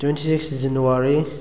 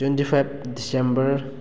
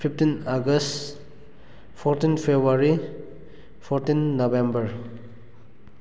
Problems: none marked